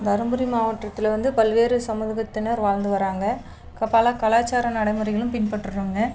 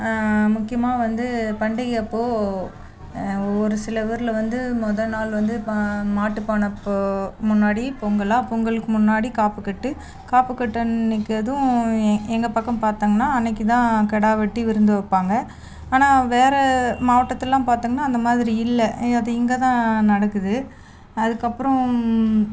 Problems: none marked